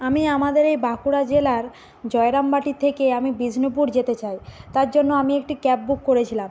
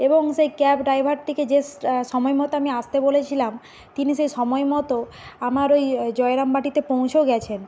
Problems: constant background noise